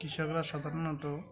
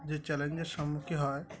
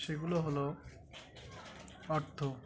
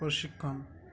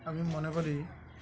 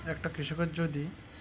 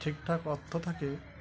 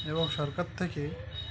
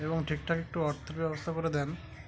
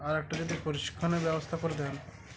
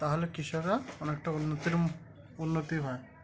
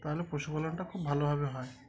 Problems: constant background noise, continuous background conversations